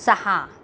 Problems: background sounds at intervals